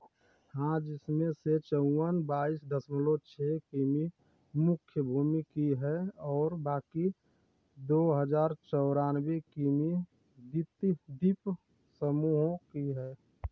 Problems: none marked